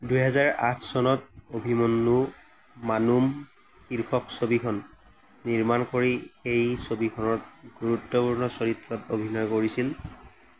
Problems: constant background noise